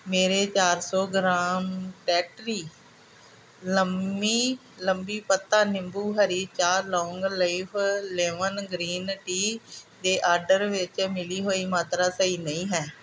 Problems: none marked